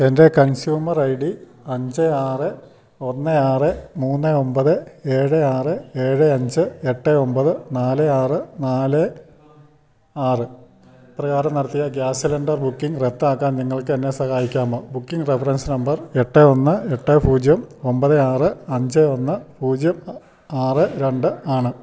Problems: none marked